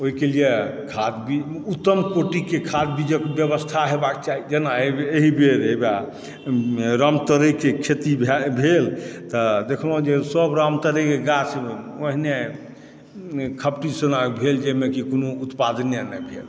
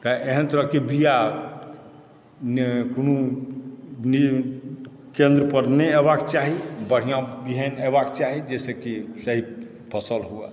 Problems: background sounds at intervals